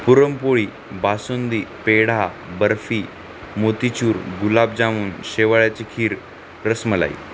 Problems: constant background noise